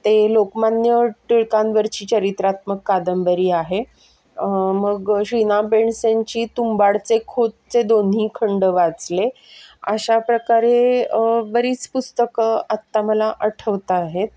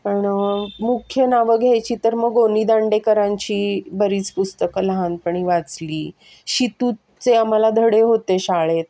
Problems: background sounds at intervals, background conversations at intervals